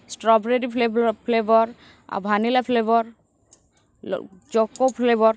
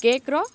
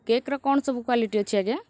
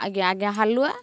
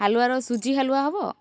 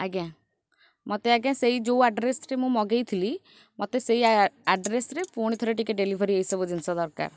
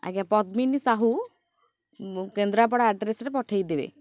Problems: background sounds at intervals